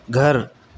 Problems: constant background noise